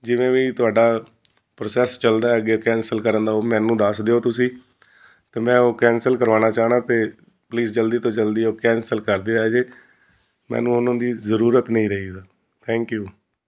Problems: constant background noise